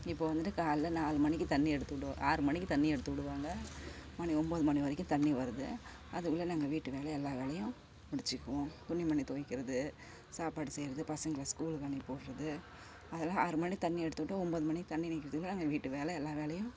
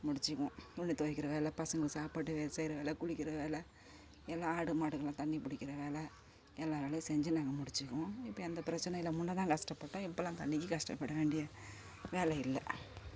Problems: constant background noise